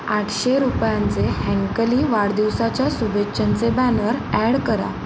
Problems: constant background noise